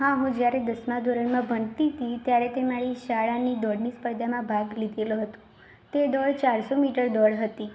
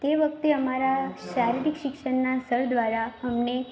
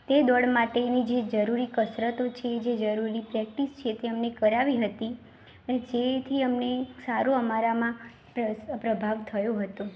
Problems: constant background noise